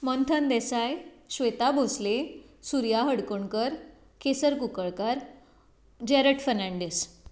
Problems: none marked